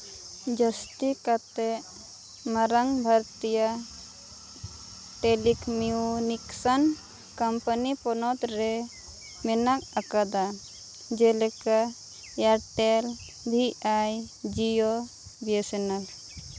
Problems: none marked